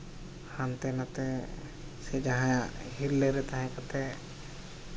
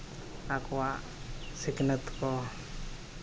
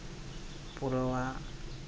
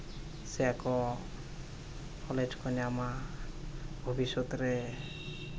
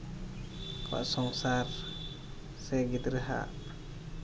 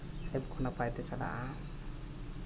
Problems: none marked